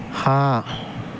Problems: constant background noise